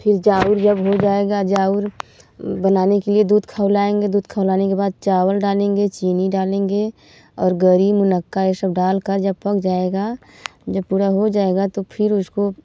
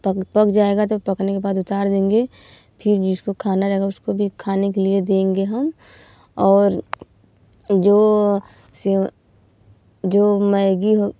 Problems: none marked